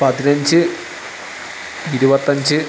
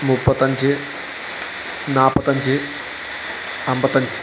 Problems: constant background noise